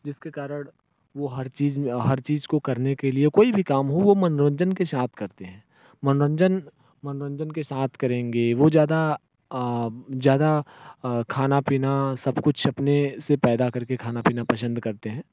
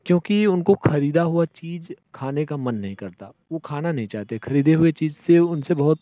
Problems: none marked